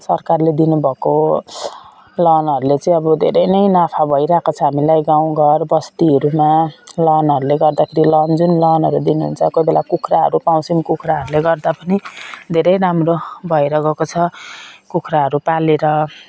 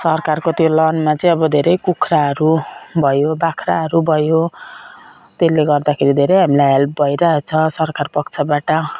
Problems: none marked